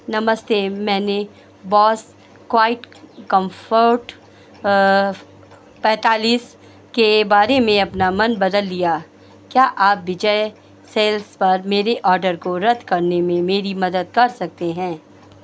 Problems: none marked